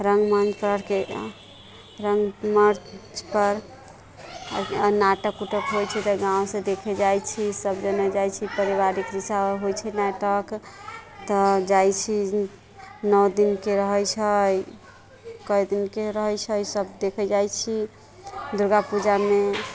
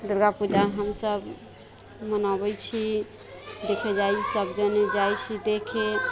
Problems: constant background noise